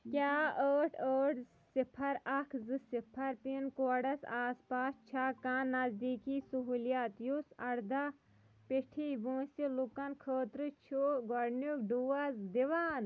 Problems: background sounds at intervals